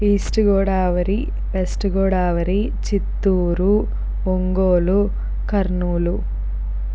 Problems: constant background noise